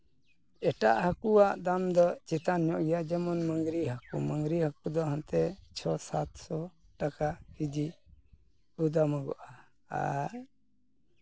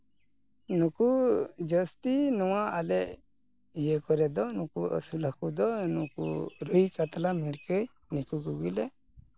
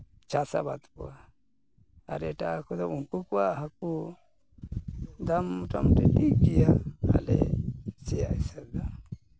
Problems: none marked